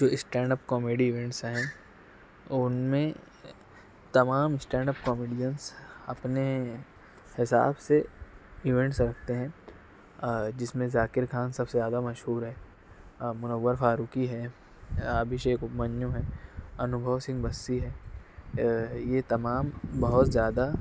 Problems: constant background noise